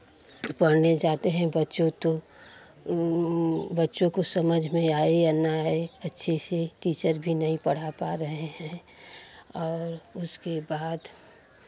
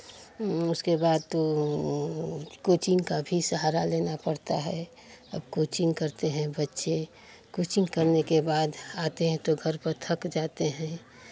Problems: none marked